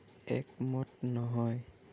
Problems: low volume